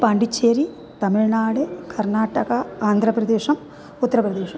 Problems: background sounds at intervals